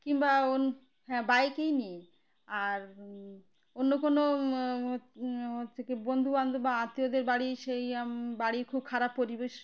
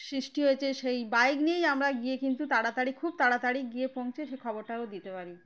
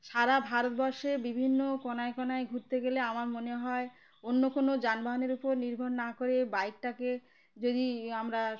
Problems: background sounds at intervals